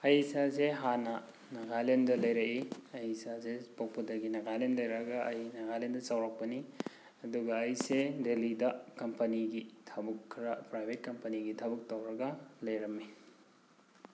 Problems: background sounds at intervals